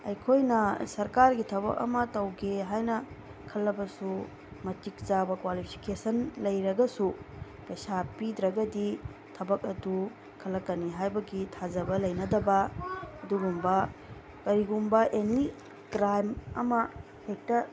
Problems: constant background noise